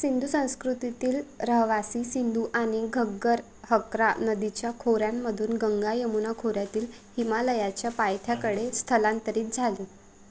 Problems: constant background noise